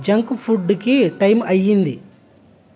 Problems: constant background noise